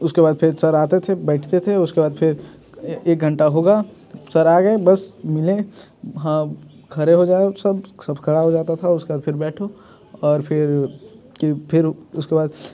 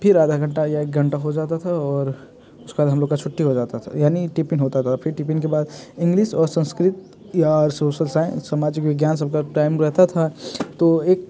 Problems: background sounds at intervals